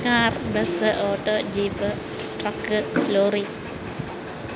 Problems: constant background noise